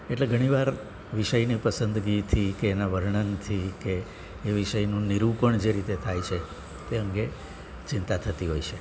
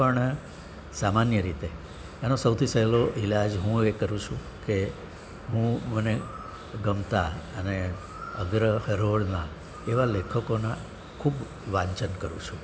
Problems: none marked